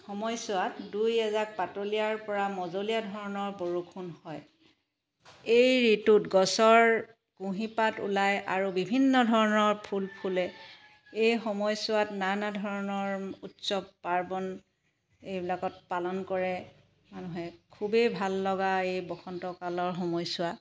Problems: background sounds at intervals